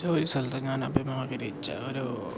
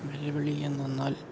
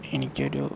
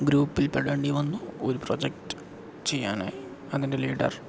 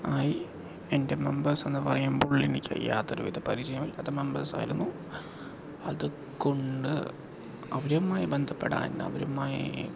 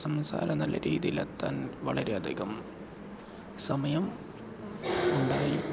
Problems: background sounds at intervals